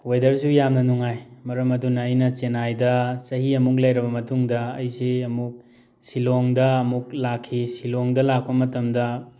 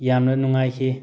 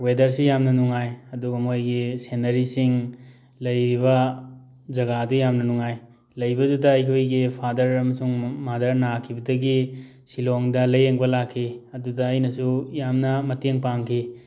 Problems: none marked